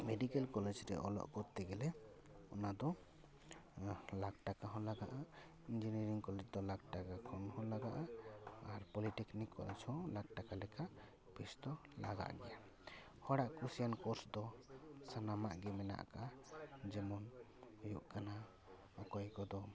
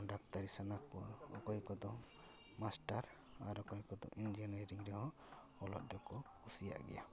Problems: background sounds at intervals, background conversations at intervals